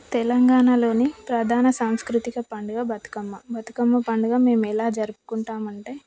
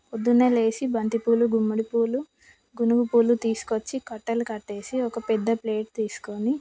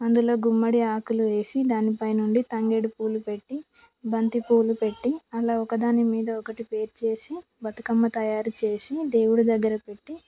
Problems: background conversations at intervals